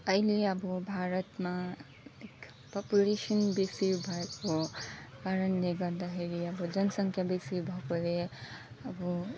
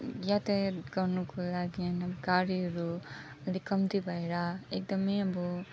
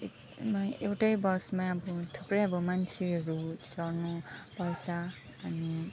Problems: constant background noise, continuous background conversations, low volume